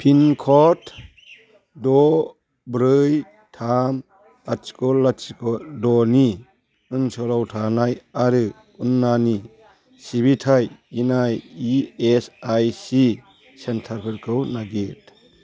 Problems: background conversations at intervals